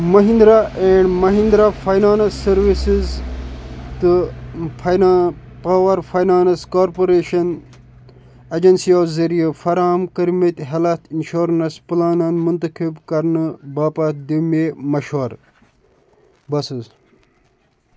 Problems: constant background noise